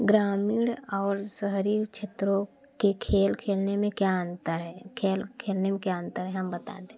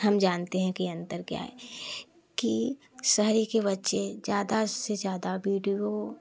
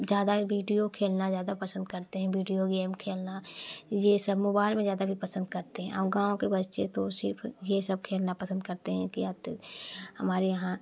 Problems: none marked